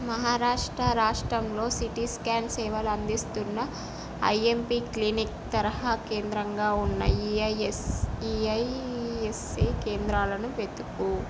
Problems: constant background noise